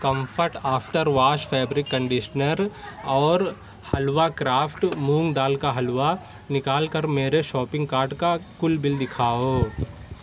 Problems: none marked